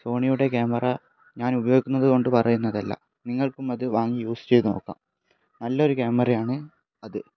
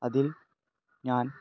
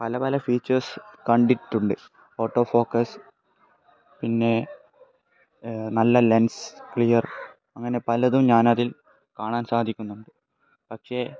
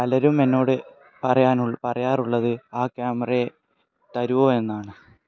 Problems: background conversations at intervals